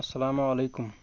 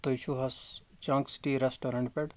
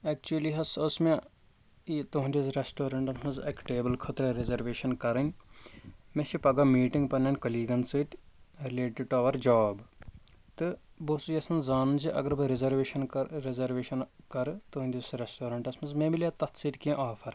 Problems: none marked